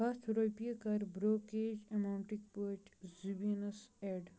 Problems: constant background noise